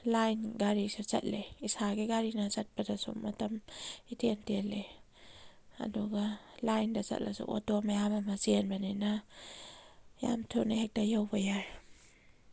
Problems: none marked